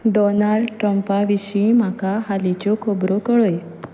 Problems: constant background noise